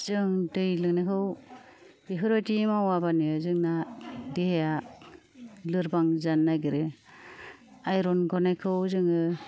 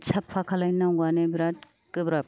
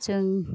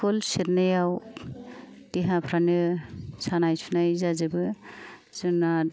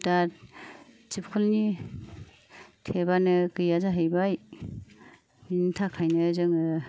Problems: low volume